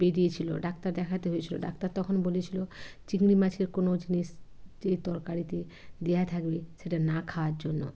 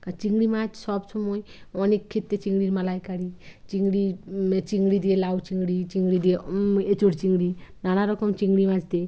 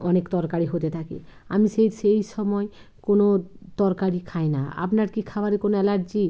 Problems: none marked